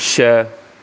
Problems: constant background noise